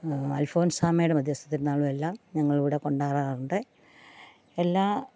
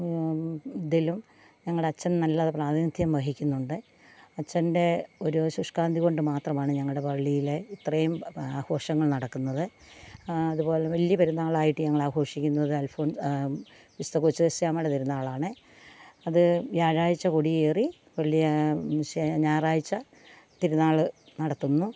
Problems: constant background noise